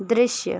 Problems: constant background noise